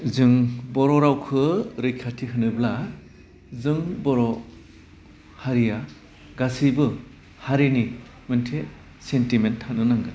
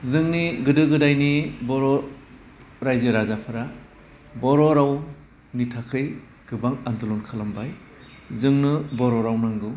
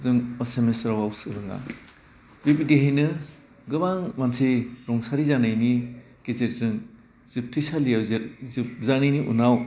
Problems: constant background noise